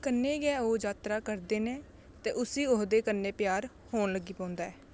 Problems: constant background noise